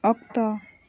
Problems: background sounds at intervals